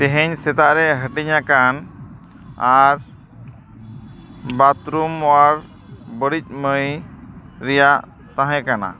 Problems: constant background noise